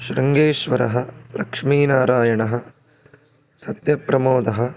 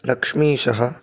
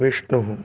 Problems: none marked